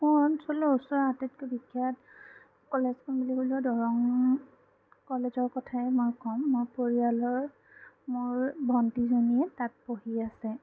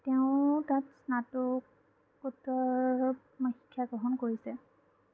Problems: low volume